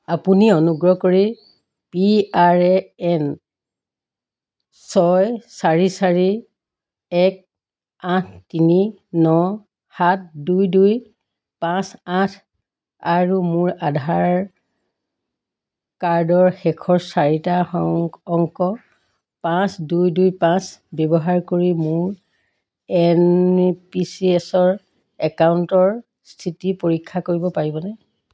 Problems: constant background noise